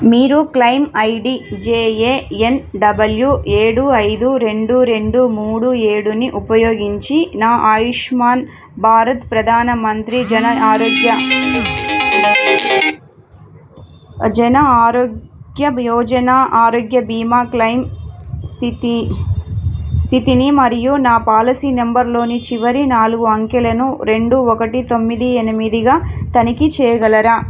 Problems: background sounds at intervals